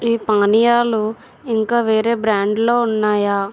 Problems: constant background noise